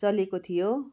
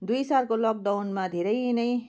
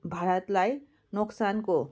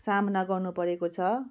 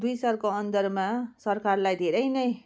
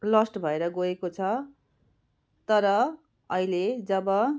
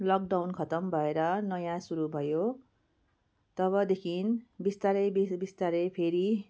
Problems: none marked